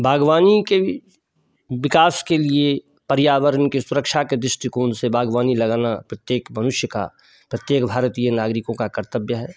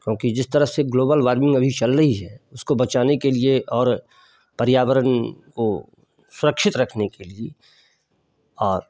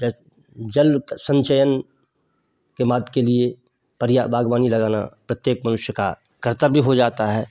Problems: none marked